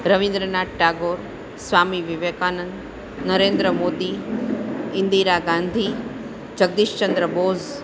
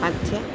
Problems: constant background noise, background conversations at intervals